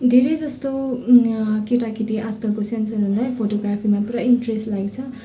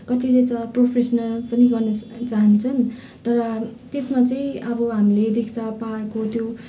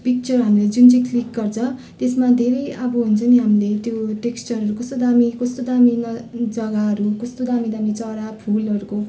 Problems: continuous background conversations